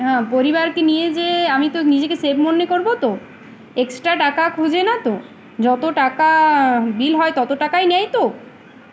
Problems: constant background noise, background conversations at intervals